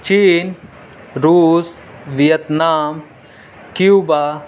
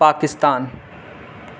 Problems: constant background noise